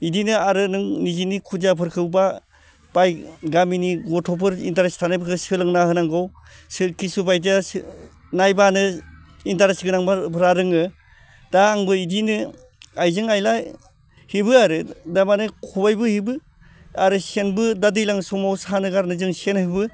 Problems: none marked